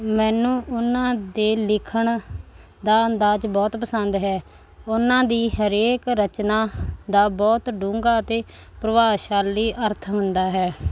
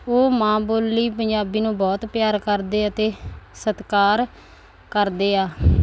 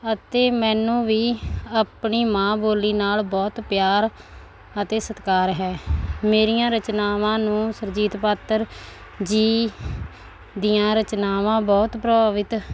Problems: none marked